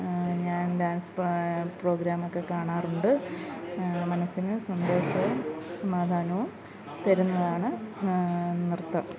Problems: background sounds at intervals